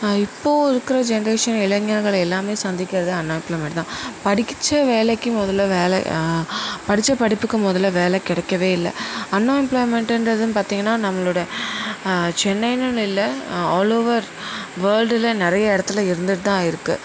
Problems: constant background noise